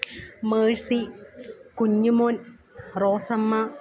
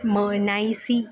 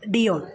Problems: background sounds at intervals, low volume